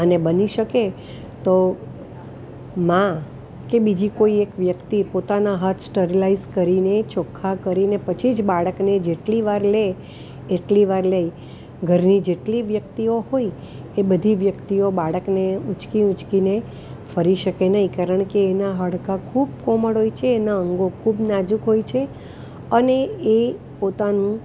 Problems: constant background noise